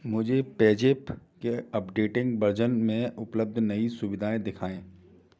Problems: constant background noise, background conversations at intervals